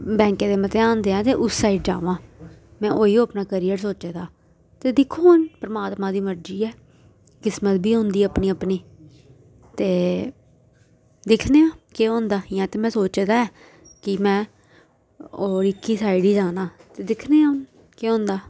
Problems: background conversations at intervals